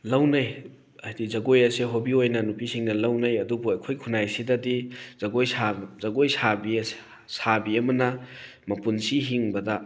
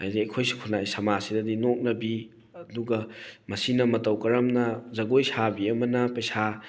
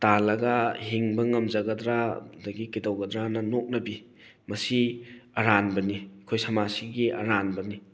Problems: none marked